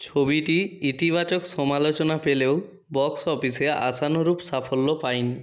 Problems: none marked